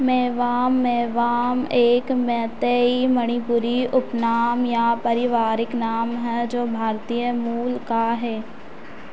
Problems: constant background noise